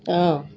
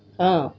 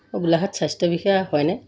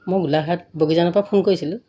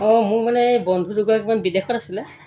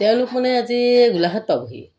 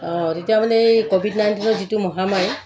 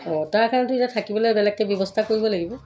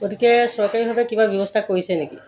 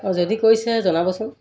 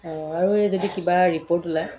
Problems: background sounds at intervals, background conversations at intervals